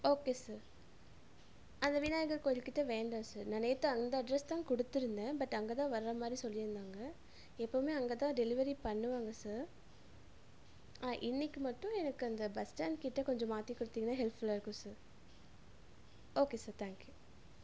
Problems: none marked